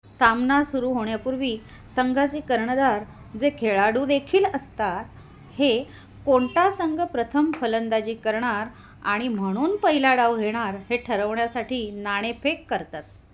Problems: none marked